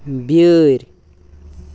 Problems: none marked